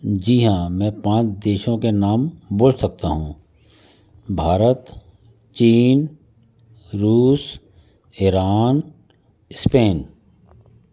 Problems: constant background noise